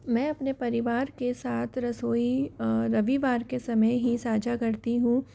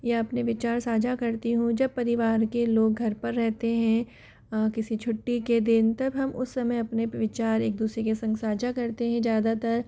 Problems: none marked